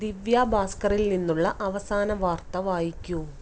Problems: none marked